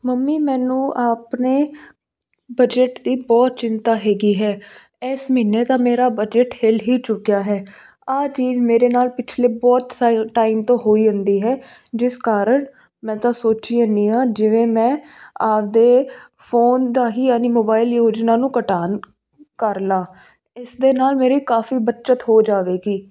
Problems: constant background noise